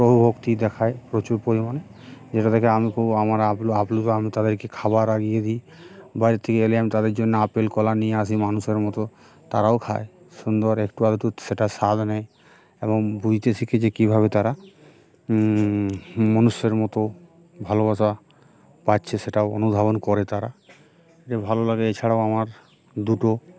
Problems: background sounds at intervals